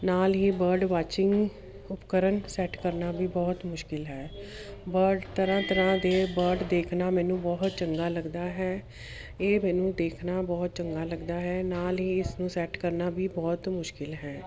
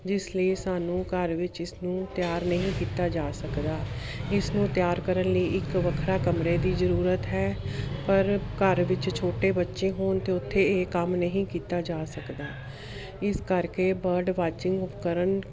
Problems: none marked